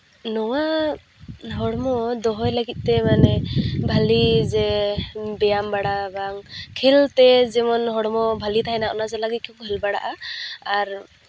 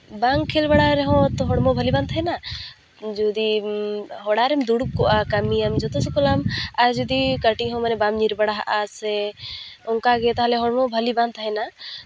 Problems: background sounds at intervals